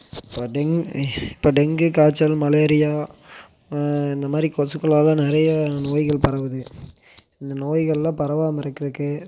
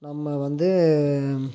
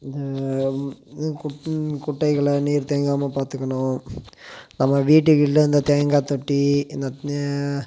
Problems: constant background noise